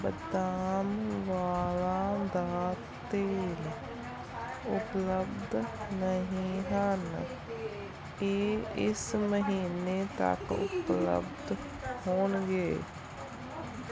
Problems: continuous background conversations